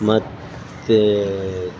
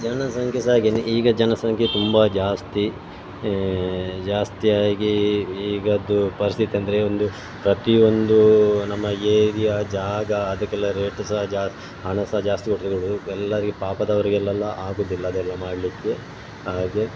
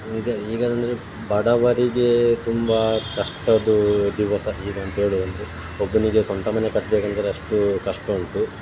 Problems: background sounds at intervals